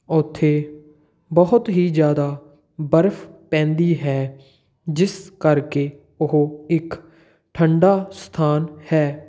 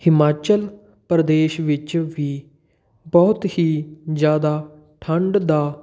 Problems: none marked